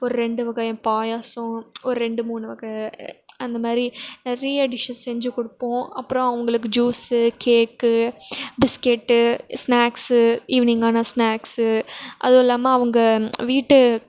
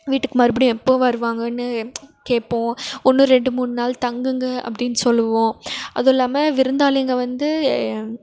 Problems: none marked